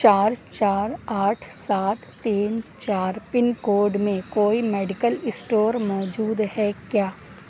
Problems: constant background noise